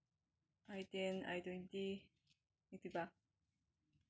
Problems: none marked